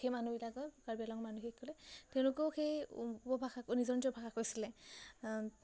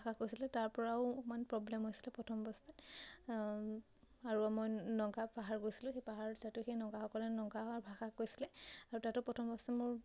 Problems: none marked